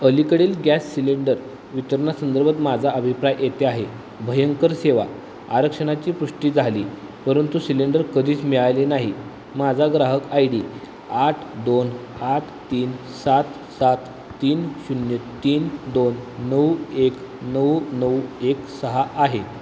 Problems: constant background noise